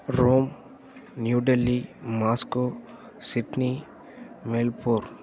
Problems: none marked